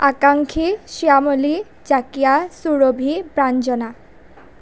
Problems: none marked